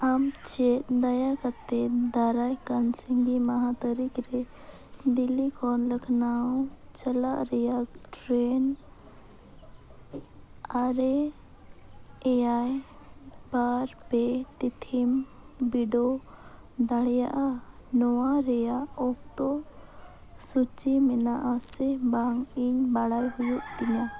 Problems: none marked